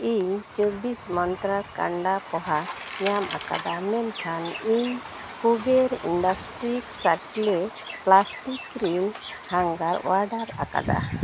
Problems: constant background noise